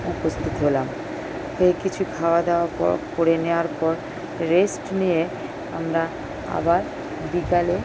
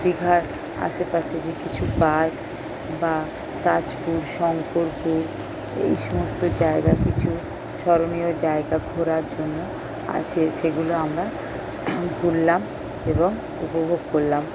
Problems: constant background noise